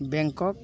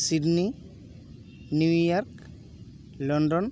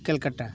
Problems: background sounds at intervals, continuous background conversations